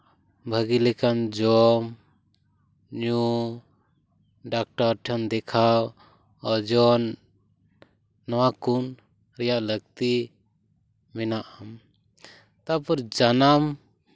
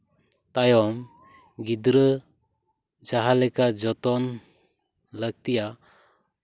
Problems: none marked